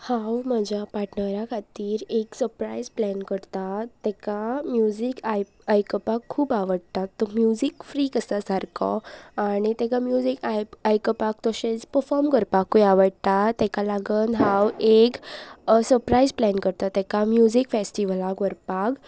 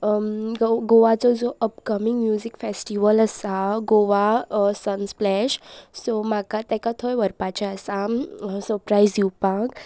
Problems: none marked